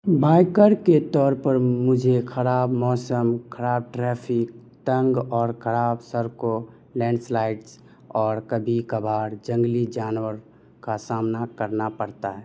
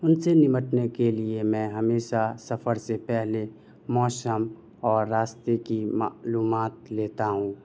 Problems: none marked